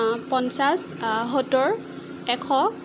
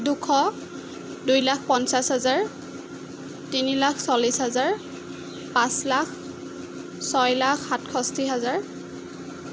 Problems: constant background noise